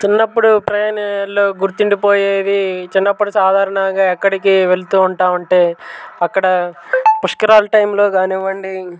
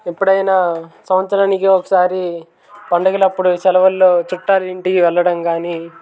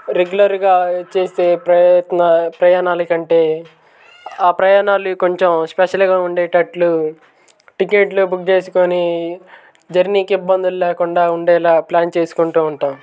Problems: background sounds at intervals, background conversations at intervals